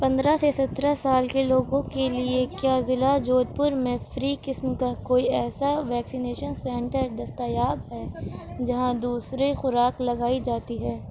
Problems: background sounds at intervals